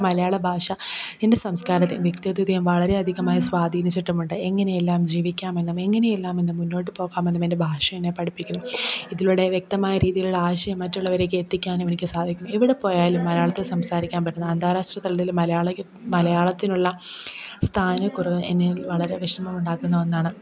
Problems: background conversations at intervals